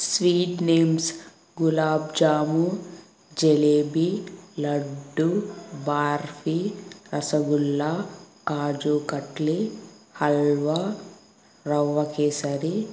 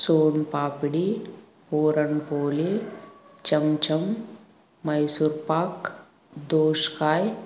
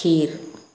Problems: constant background noise